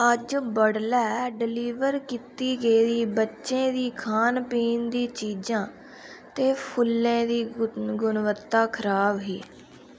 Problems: background sounds at intervals